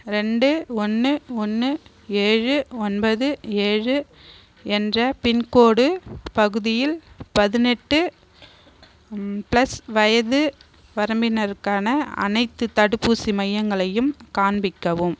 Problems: constant background noise